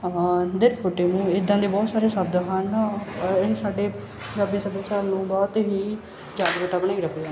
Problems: none marked